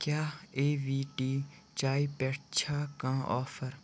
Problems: constant background noise